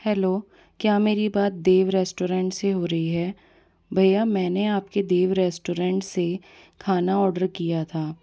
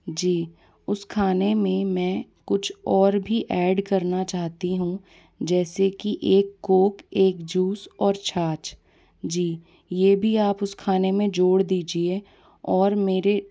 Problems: background conversations at intervals